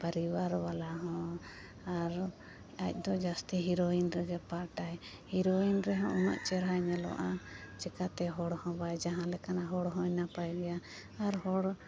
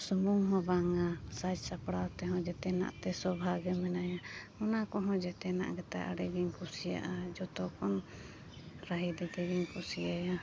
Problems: background sounds at intervals